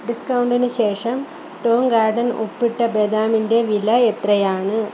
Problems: none marked